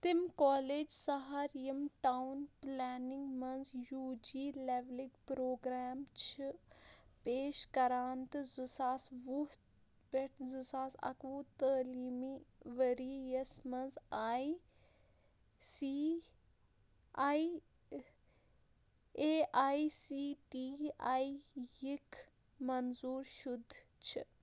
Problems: low volume